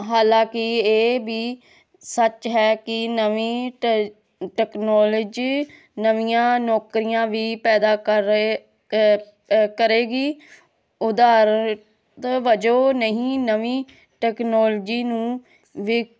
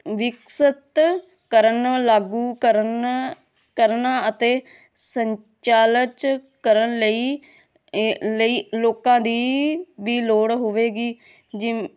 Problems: none marked